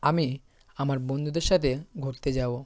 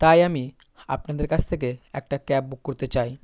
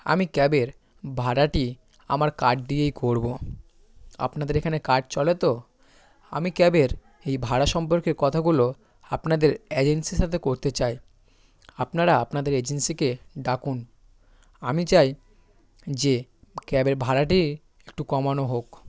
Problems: constant background noise, background conversations at intervals